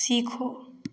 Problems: background sounds at intervals